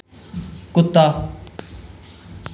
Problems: echo